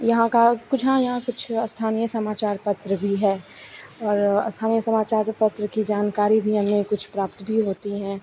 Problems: constant background noise, continuous background conversations